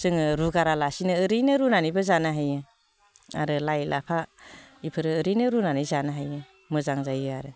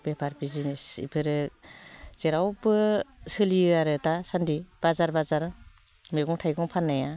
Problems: constant background noise